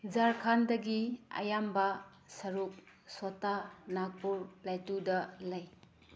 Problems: low volume